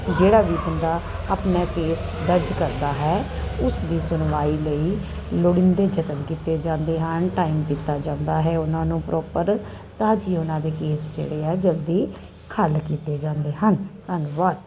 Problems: constant background noise